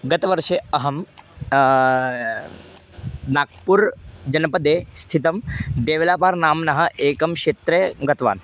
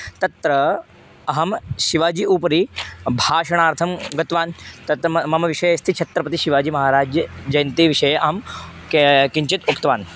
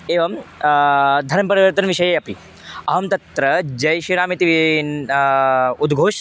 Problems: none marked